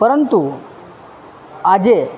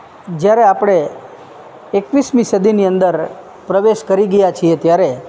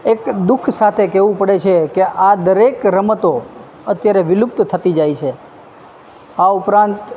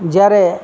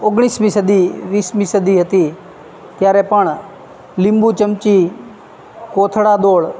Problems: none marked